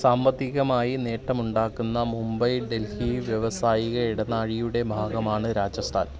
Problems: none marked